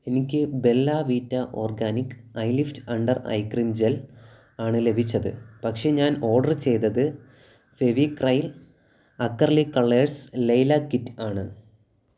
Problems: background sounds at intervals